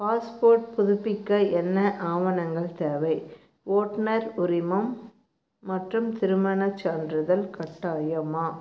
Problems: low volume